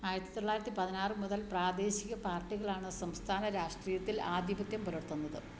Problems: low volume